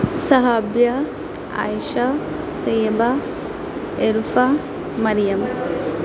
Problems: constant background noise